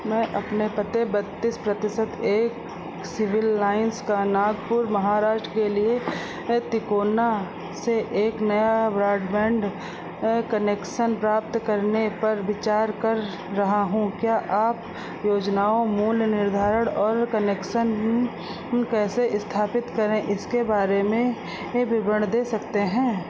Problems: none marked